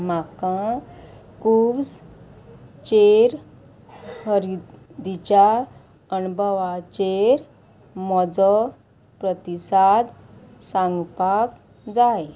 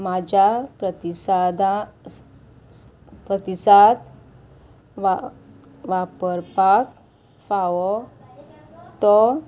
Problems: constant background noise